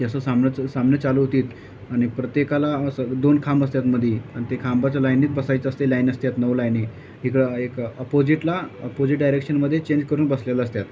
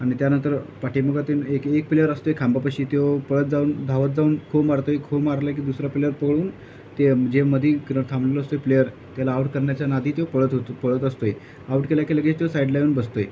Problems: none marked